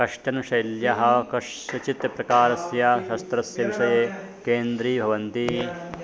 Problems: constant background noise, continuous background conversations